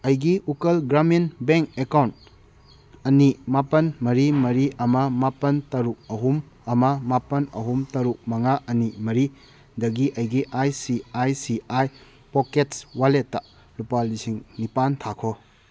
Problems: none marked